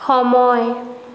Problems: constant background noise